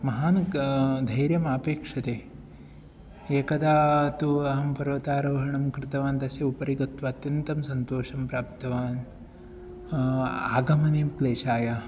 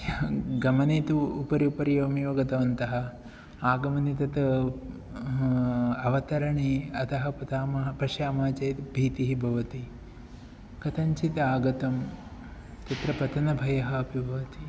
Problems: none marked